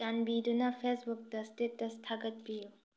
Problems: low volume